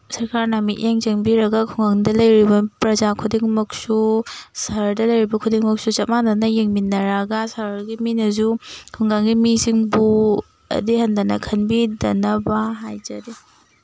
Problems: background sounds at intervals